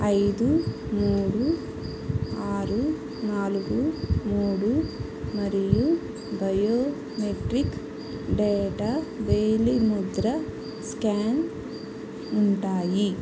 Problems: constant background noise